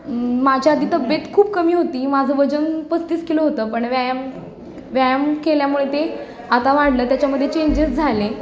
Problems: background conversations at intervals